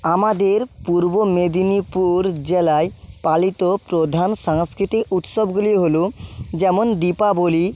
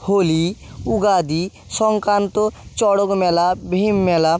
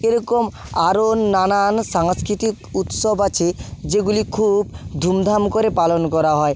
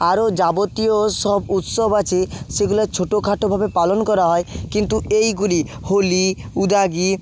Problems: background sounds at intervals